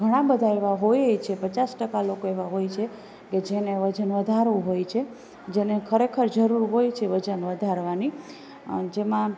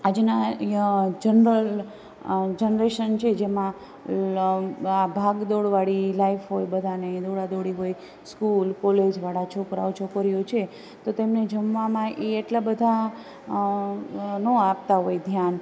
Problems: none marked